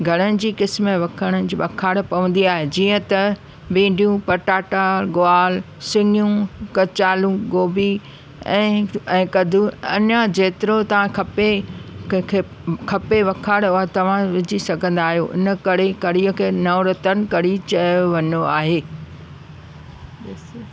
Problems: constant background noise